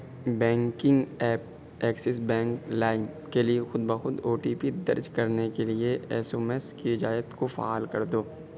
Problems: constant background noise